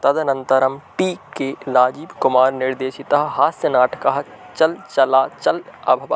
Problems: constant background noise